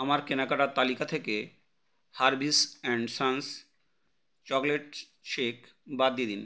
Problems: constant background noise